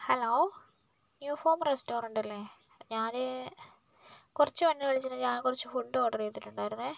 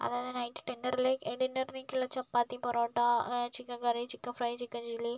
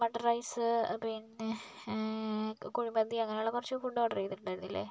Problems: none marked